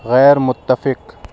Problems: none marked